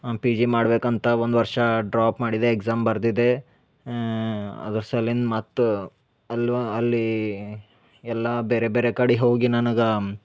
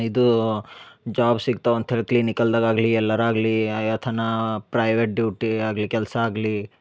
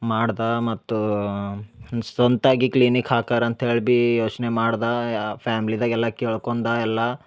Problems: none marked